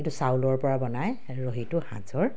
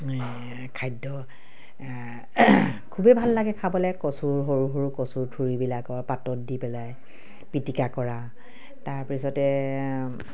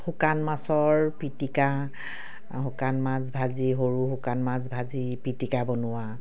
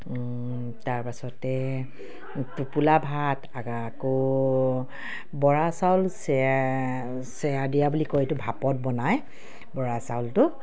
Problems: none marked